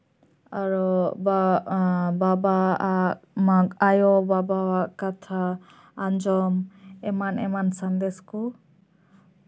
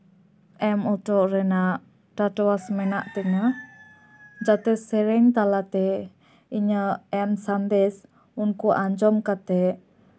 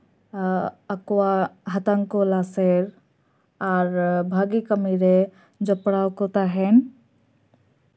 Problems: background sounds at intervals